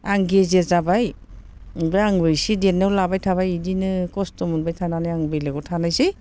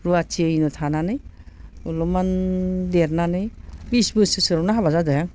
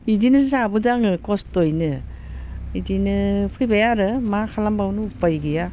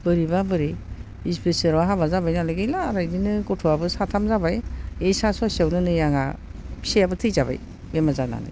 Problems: constant background noise